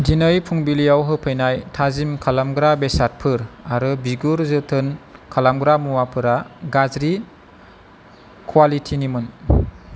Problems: constant background noise